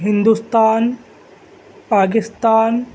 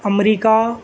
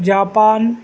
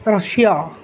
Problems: constant background noise